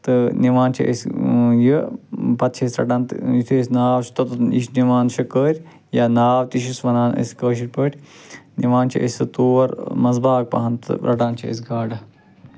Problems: constant background noise